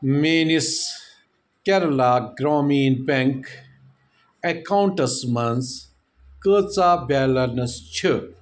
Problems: none marked